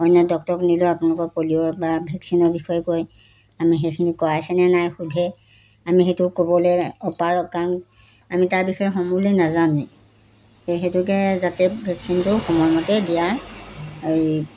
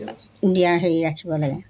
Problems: none marked